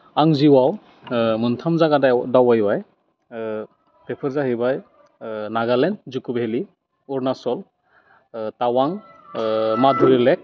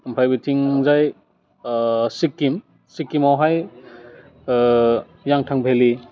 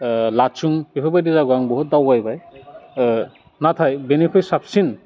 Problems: constant background noise